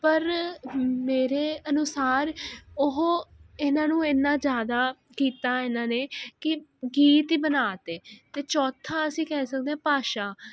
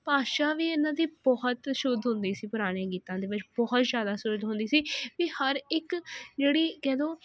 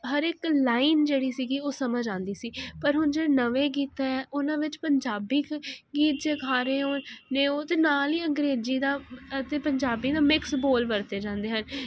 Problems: constant background noise